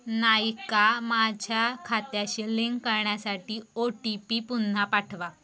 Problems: constant background noise